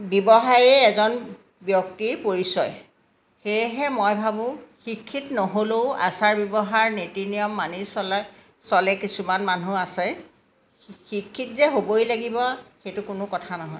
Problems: background sounds at intervals